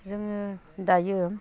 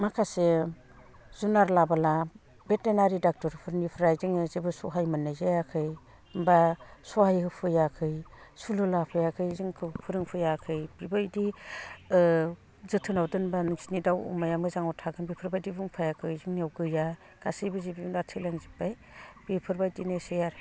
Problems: low volume